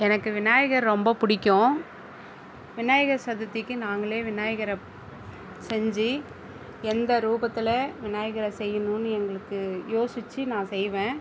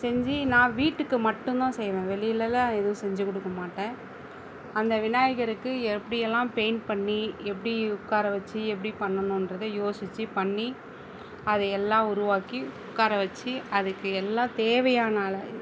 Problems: constant background noise